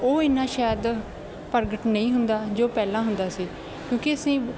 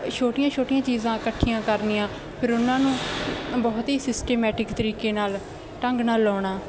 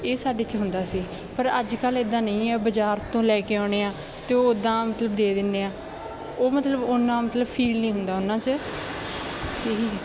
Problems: constant background noise